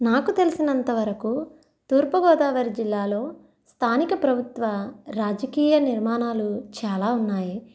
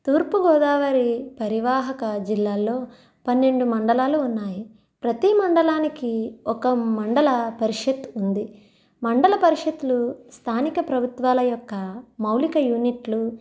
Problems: none marked